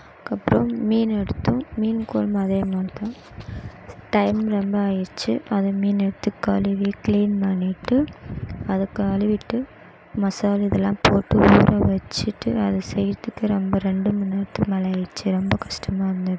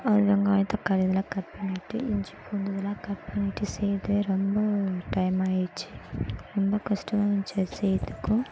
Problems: background sounds at intervals